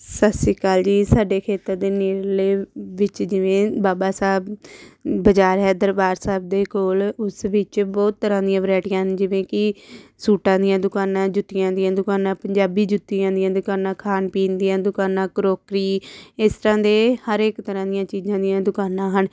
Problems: none marked